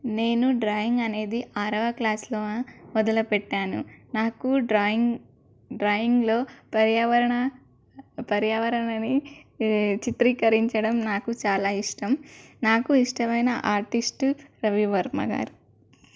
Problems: none marked